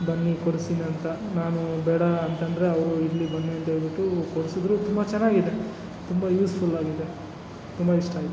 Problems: background sounds at intervals